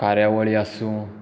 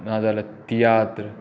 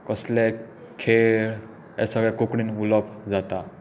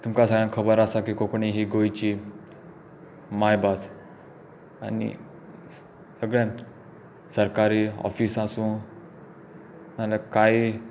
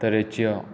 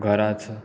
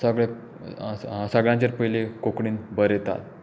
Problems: constant background noise